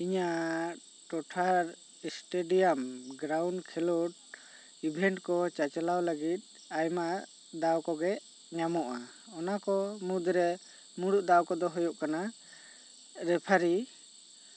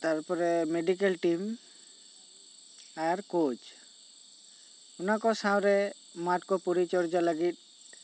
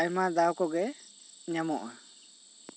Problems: constant background noise